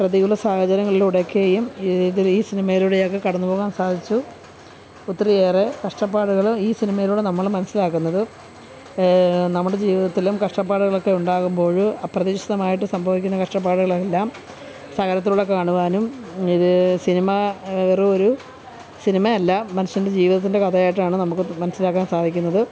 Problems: constant background noise, background conversations at intervals